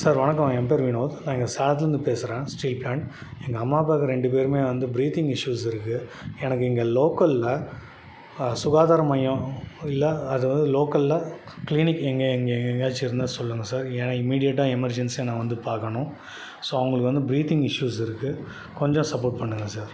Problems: background sounds at intervals